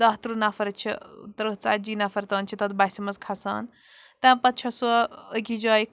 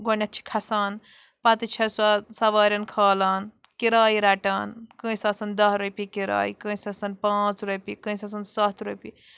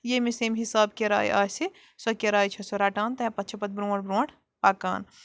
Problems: background sounds at intervals